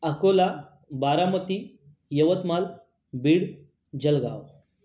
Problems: constant background noise